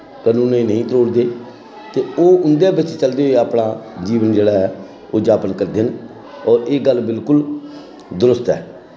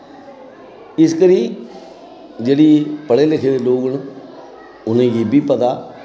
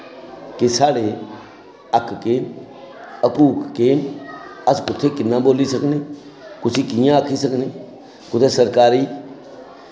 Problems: constant background noise